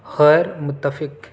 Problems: background sounds at intervals